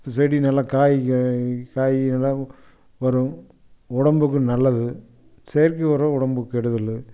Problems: none marked